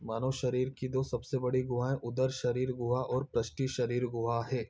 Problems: background sounds at intervals